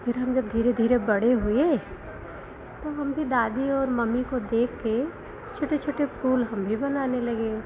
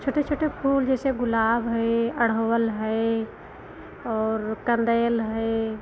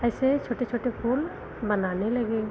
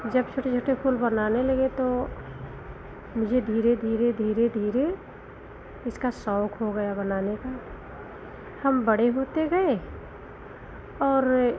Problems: constant background noise